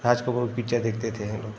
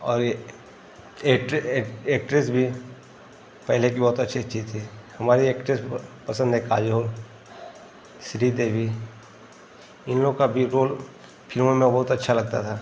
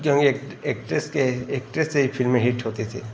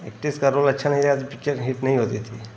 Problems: constant background noise